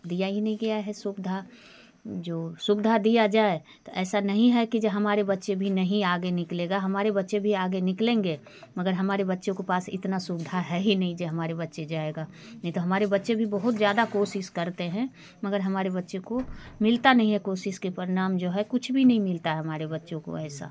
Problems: constant background noise, background conversations at intervals